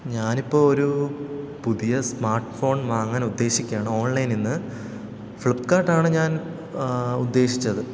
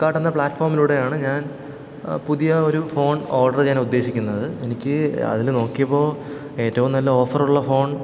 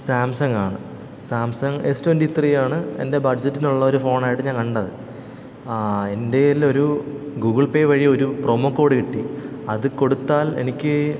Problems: background sounds at intervals